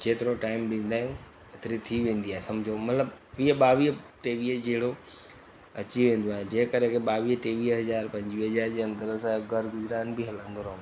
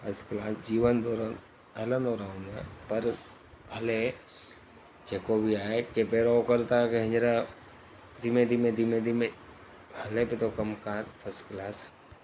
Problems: constant background noise